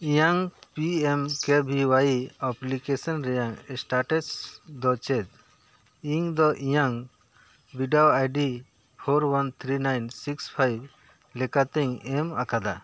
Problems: none marked